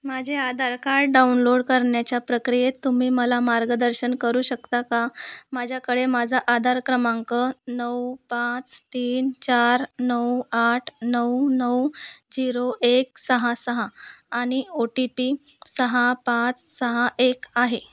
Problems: constant background noise